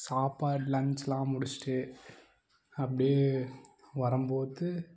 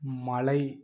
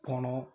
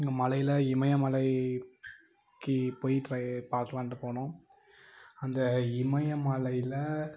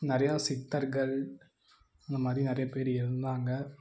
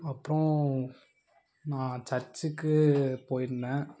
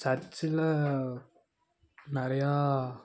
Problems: none marked